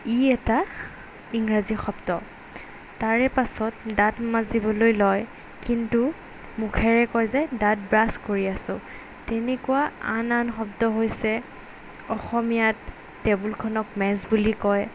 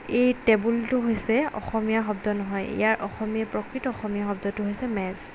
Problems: background sounds at intervals